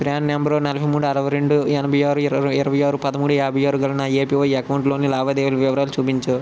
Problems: constant background noise